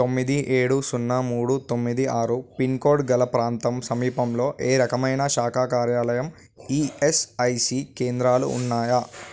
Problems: background sounds at intervals